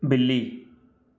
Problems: none marked